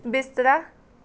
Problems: background conversations at intervals